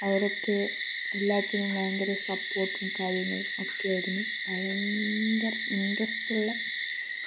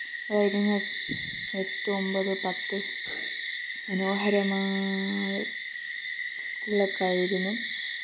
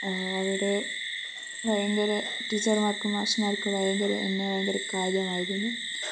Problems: low volume